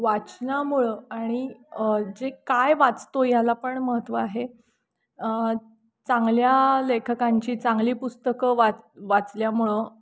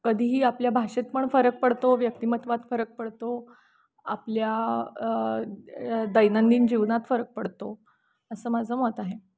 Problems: constant background noise, background conversations at intervals